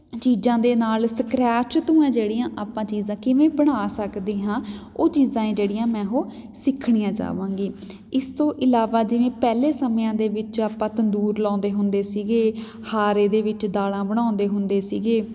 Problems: none marked